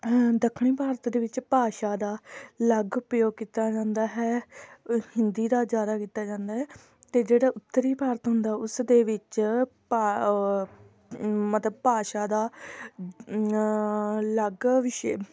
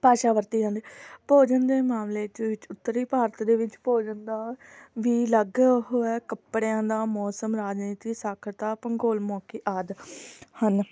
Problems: none marked